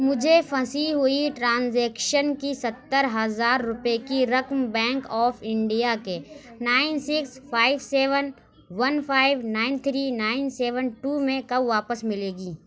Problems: background sounds at intervals